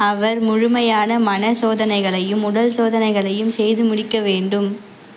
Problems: constant background noise